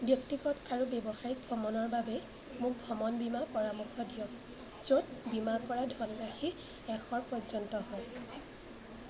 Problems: constant background noise, background conversations at intervals